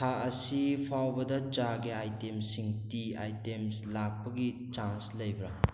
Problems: background sounds at intervals